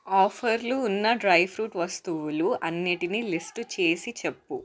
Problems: constant background noise